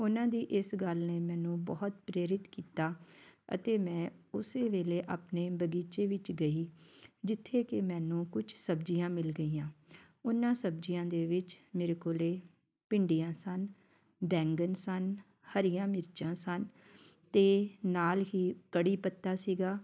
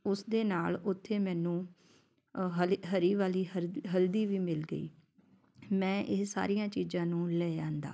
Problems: none marked